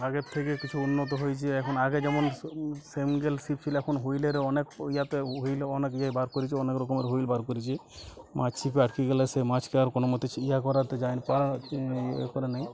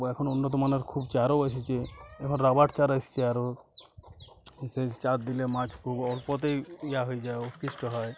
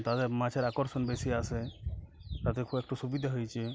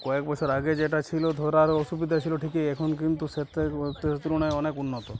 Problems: constant background noise, background conversations at intervals